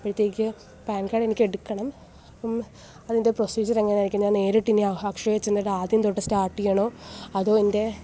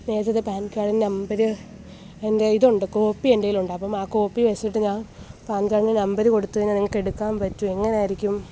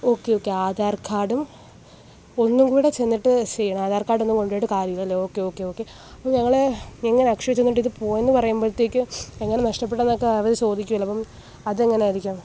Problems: none marked